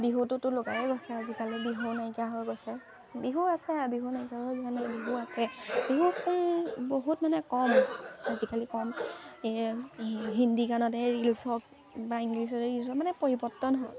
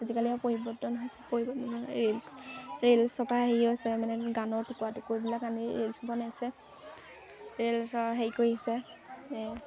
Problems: constant background noise, background conversations at intervals